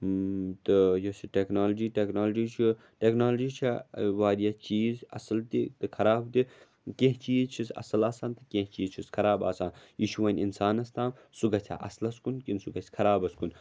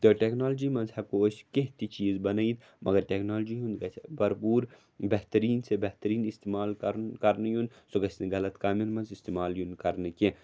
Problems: none marked